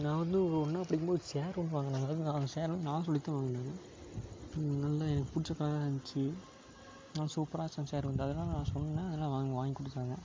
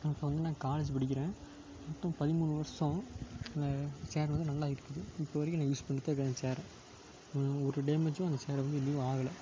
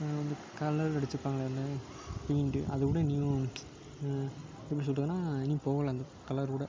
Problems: constant background noise